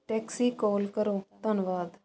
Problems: constant background noise